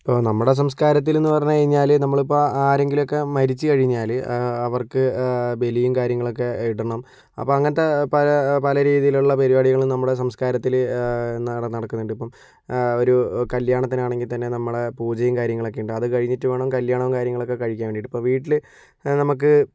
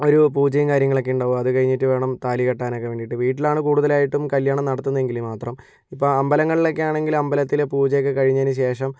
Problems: none marked